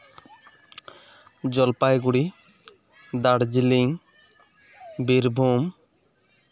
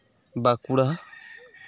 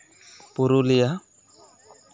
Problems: constant background noise, continuous background conversations